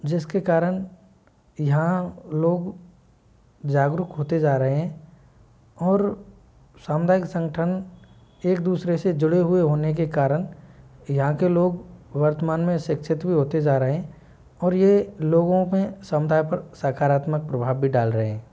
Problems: low volume